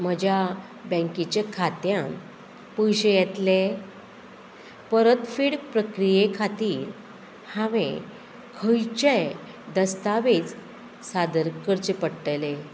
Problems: constant background noise